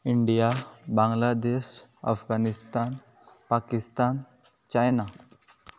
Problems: background sounds at intervals